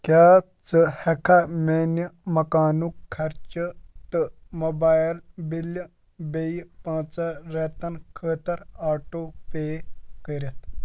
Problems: none marked